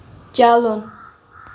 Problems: constant background noise